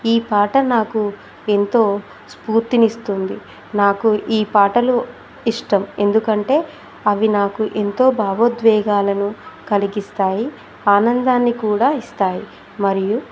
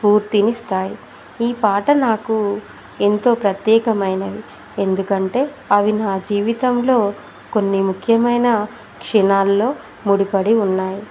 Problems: constant background noise